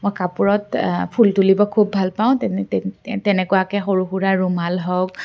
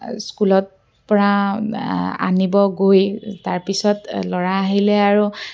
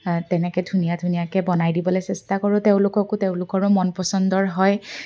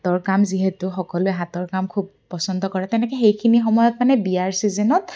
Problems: none marked